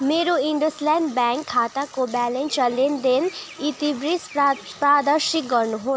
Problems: none marked